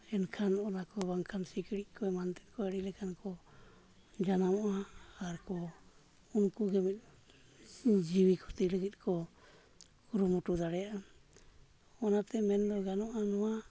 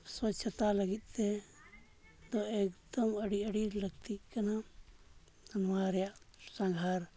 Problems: background sounds at intervals, low volume